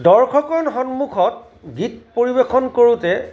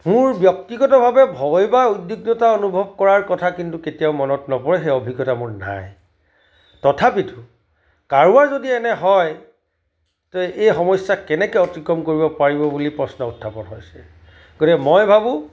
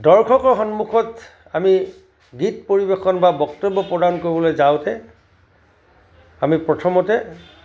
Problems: background sounds at intervals